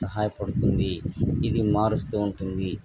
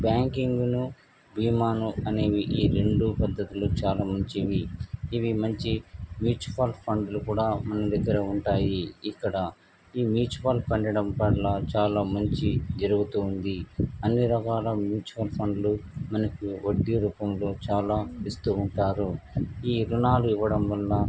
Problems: constant background noise